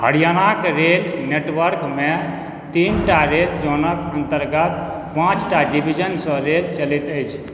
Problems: background sounds at intervals